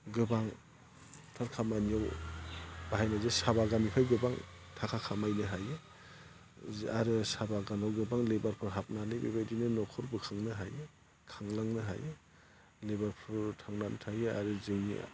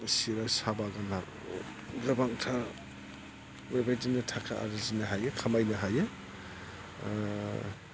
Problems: low volume